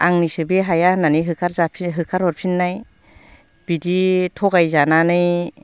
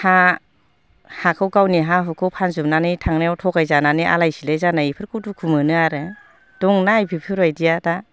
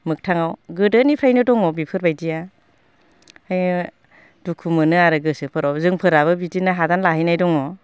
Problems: constant background noise